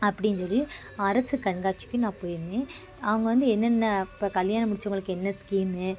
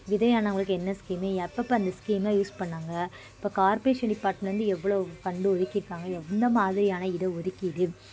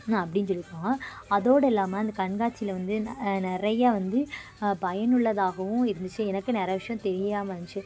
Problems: constant background noise, continuous background conversations